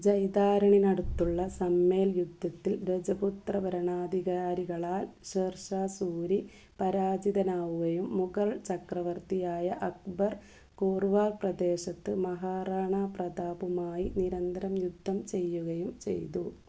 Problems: low volume